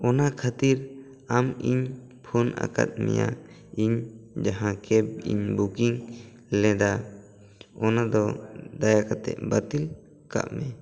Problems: background conversations at intervals